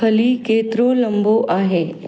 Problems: background sounds at intervals